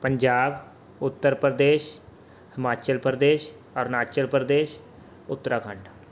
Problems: none marked